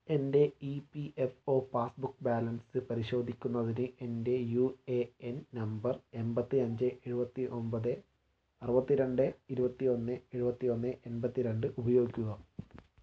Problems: low volume